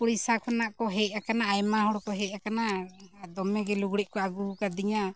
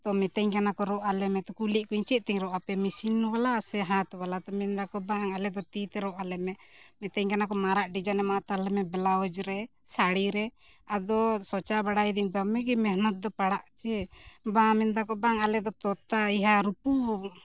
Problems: none marked